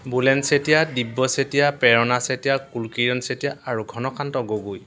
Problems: constant background noise